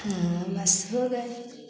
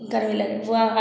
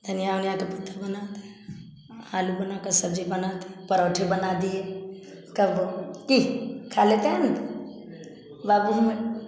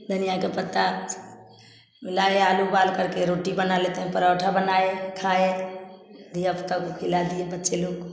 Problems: constant background noise, continuous background conversations